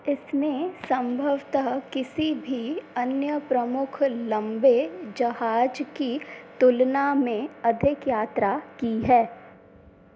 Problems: constant background noise